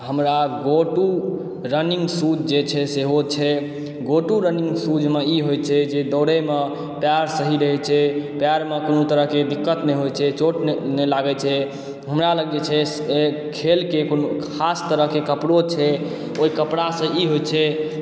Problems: echo